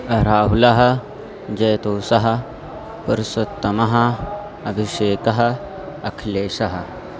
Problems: none marked